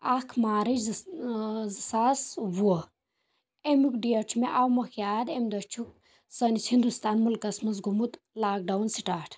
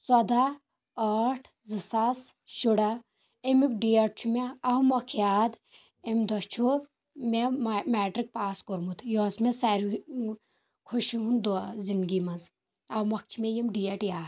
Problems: none marked